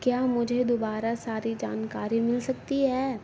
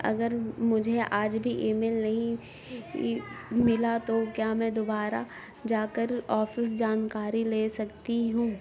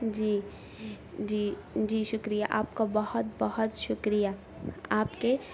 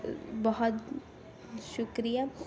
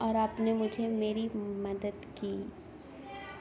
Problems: constant background noise